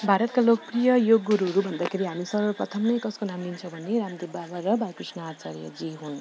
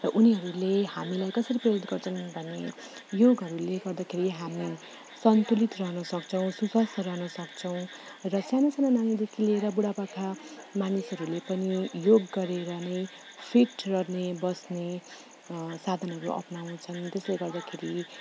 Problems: background sounds at intervals